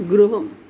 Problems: none marked